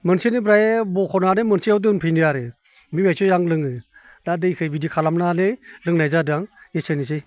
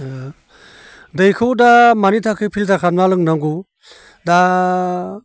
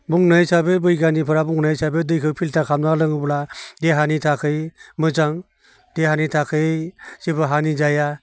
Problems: constant background noise